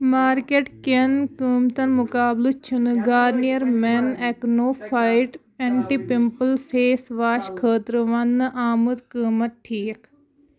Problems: background conversations at intervals